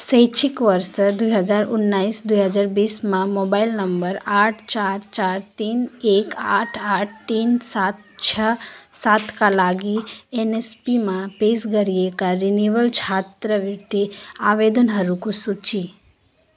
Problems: continuous background conversations